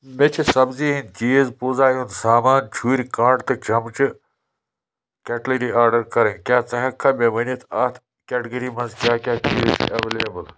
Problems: constant background noise